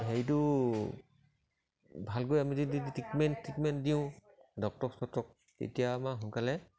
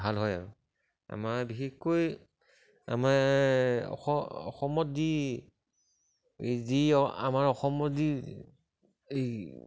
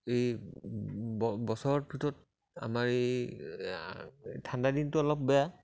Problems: none marked